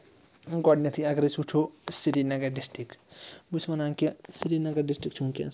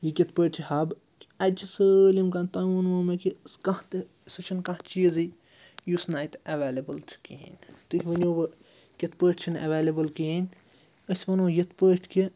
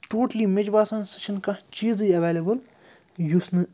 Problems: constant background noise